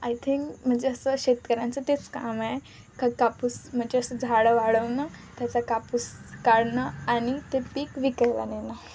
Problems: constant background noise, continuous background conversations